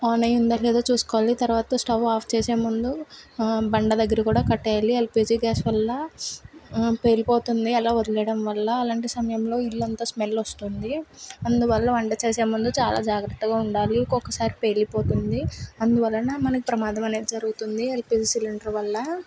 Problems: none marked